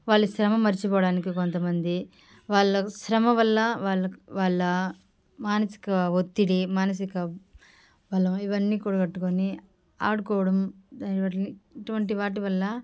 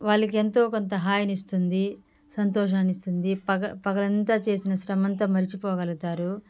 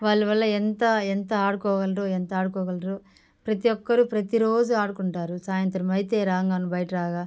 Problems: background sounds at intervals